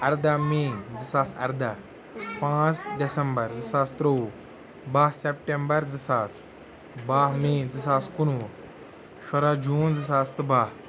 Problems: background sounds at intervals